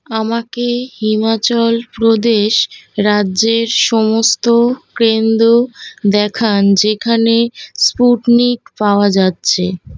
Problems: none marked